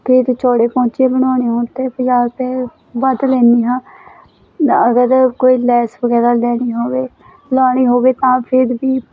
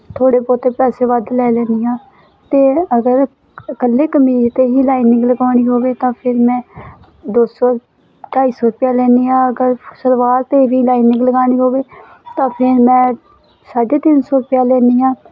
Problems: constant background noise